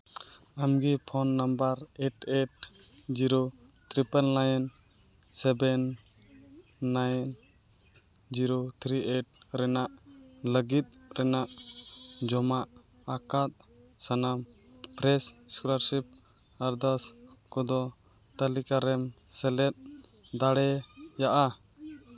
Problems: continuous background conversations